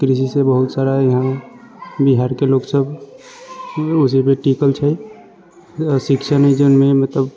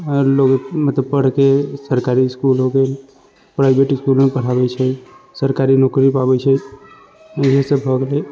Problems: constant background noise